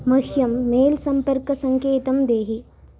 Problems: constant background noise